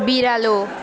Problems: continuous background conversations